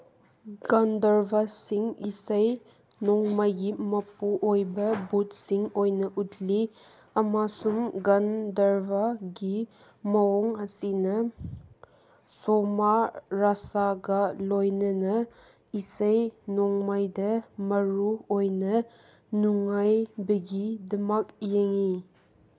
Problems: none marked